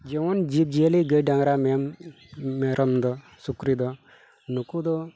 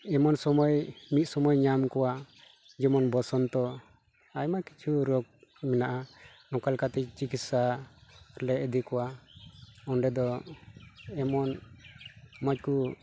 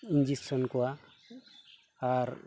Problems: background sounds at intervals